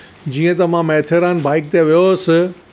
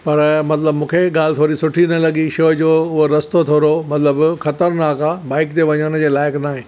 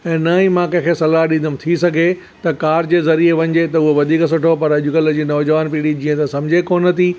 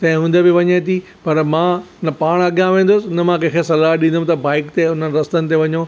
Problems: none marked